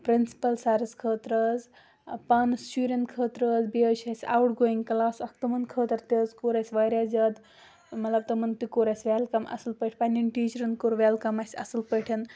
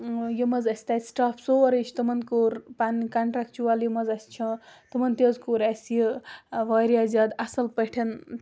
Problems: background sounds at intervals